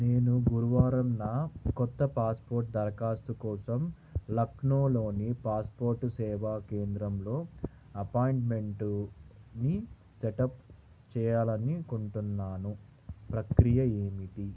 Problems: constant background noise